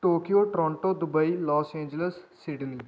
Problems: none marked